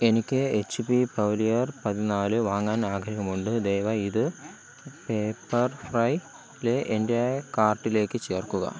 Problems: constant background noise